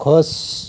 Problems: constant background noise